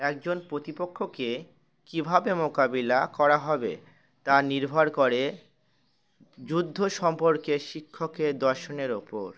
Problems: background sounds at intervals